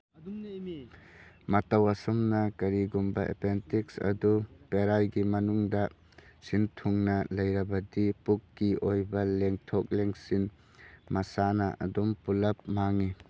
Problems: background sounds at intervals, background conversations at intervals